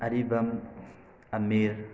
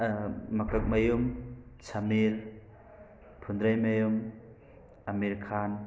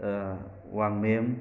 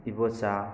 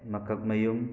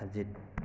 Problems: background sounds at intervals, background conversations at intervals